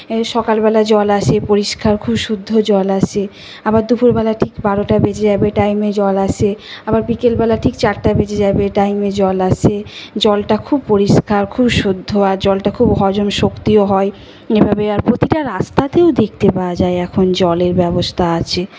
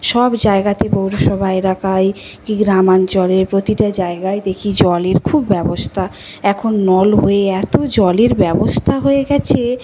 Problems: constant background noise